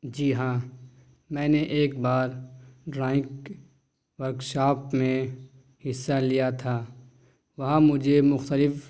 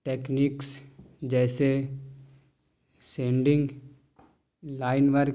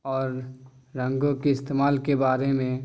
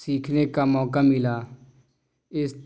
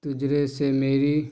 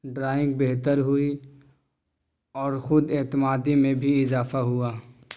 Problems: none marked